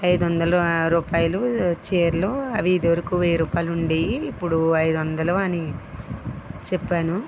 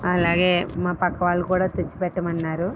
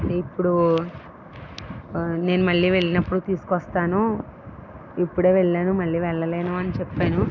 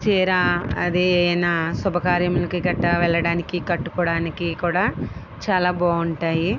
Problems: none marked